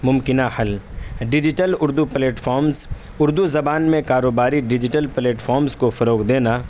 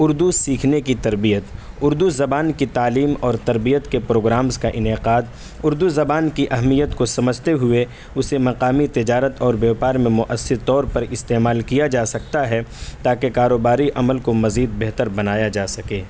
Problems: constant background noise